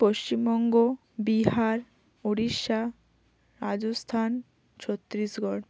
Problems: constant background noise